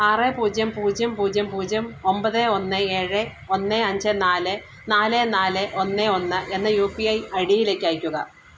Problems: constant background noise